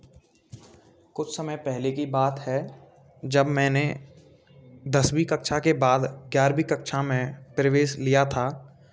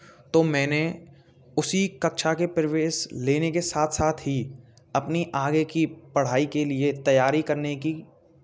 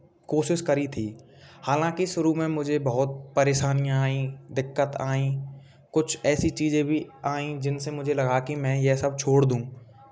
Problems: background sounds at intervals